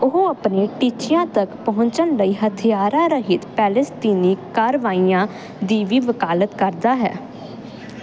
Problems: constant background noise